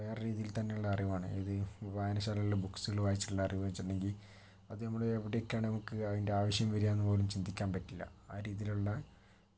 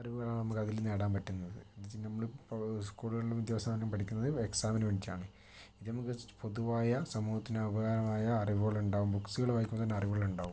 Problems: low volume